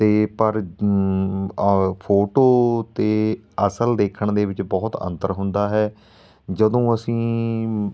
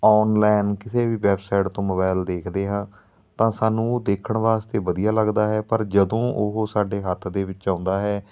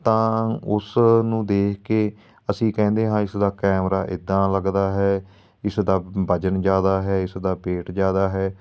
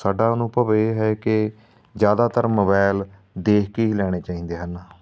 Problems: background sounds at intervals